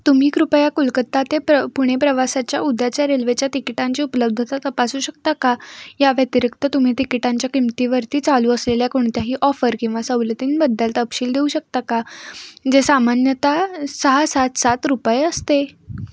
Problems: constant background noise